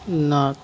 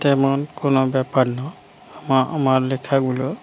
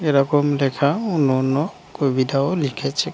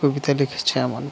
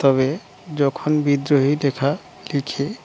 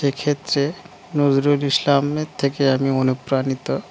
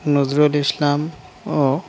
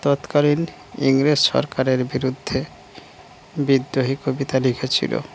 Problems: background sounds at intervals